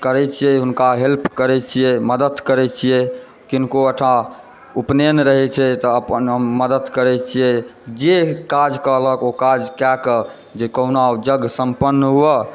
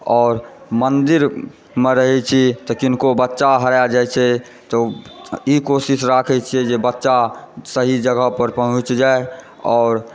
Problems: background sounds at intervals